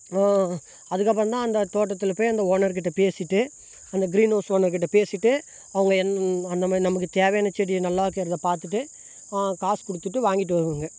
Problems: background sounds at intervals